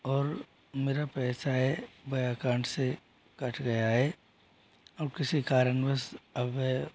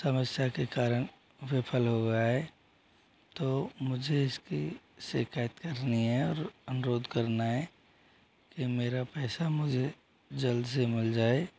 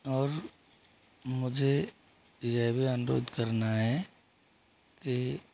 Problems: background sounds at intervals